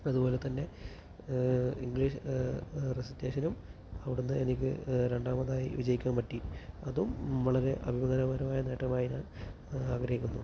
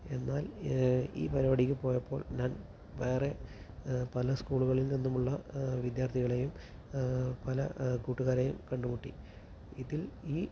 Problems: constant background noise, low volume